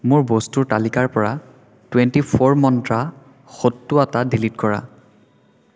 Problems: background sounds at intervals, echo